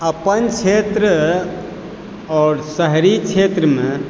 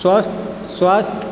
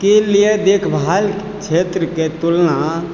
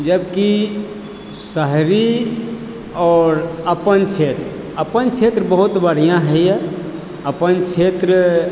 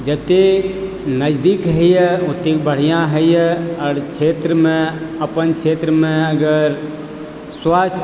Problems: background sounds at intervals